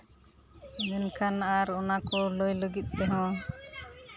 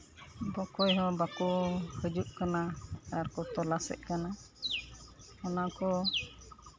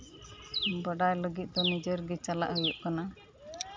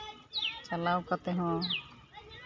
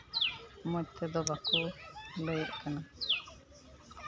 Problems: constant background noise, continuous background conversations